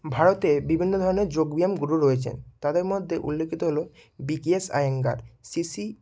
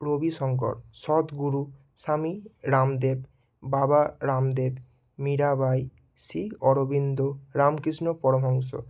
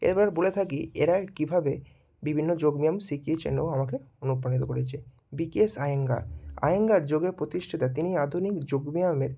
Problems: none marked